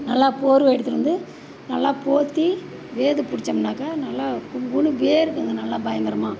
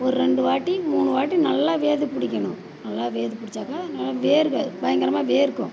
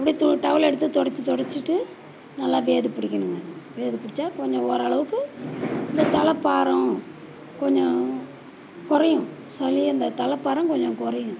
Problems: background sounds at intervals